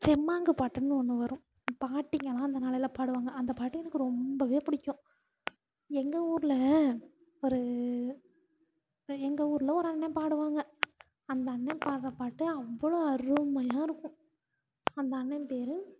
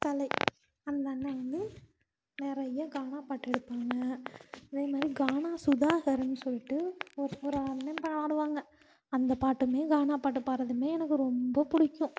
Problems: constant background noise, low volume